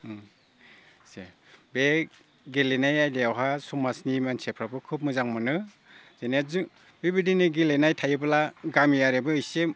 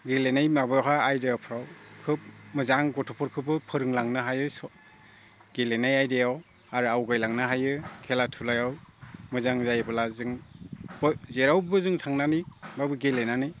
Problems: low volume